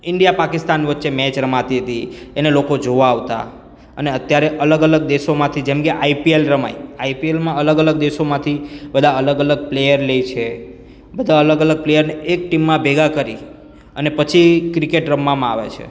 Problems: none marked